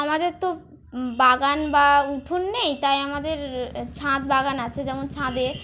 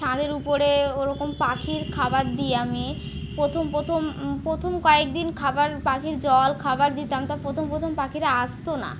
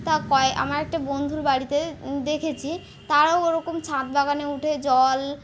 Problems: constant background noise